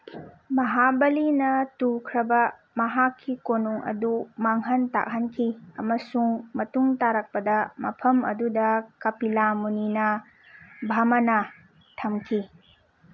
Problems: background sounds at intervals